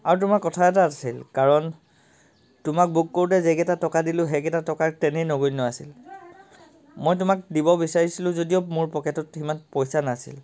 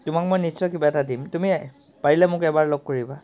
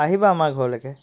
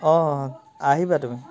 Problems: constant background noise, background conversations at intervals